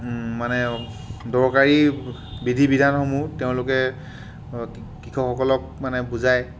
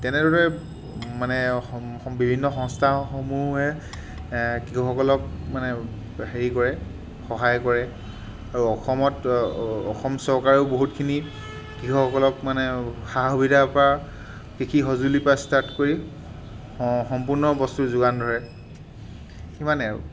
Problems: constant background noise